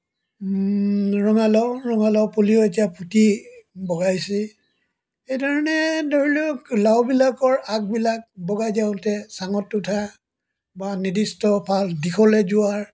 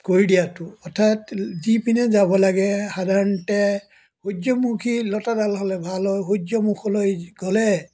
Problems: background sounds at intervals